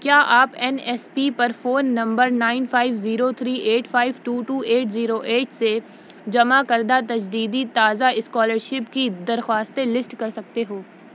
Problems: none marked